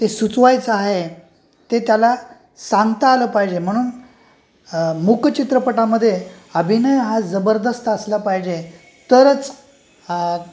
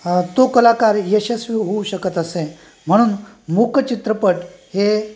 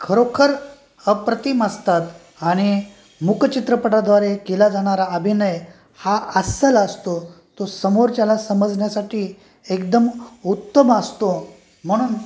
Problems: background sounds at intervals